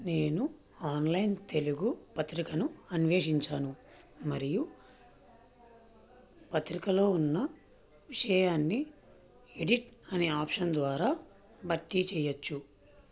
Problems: none marked